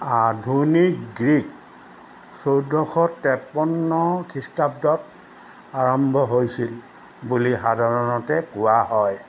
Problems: none marked